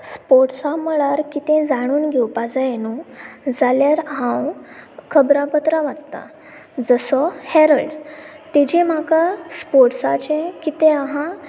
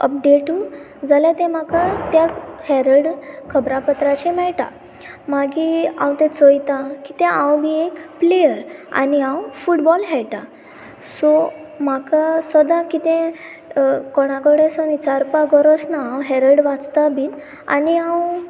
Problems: constant background noise